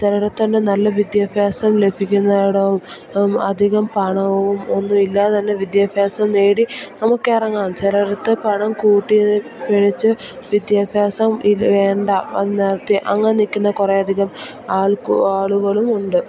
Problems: constant background noise